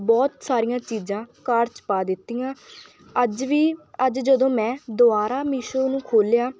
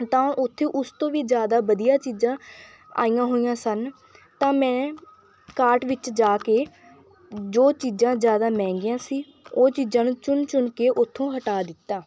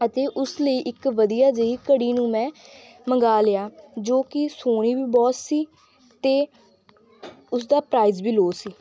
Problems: background sounds at intervals